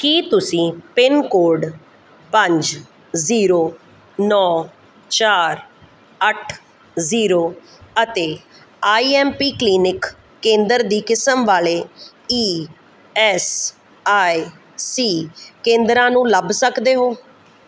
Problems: background sounds at intervals